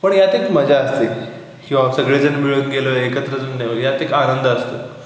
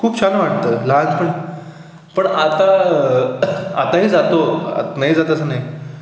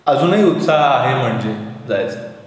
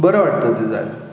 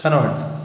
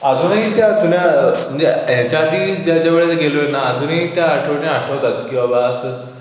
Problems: constant background noise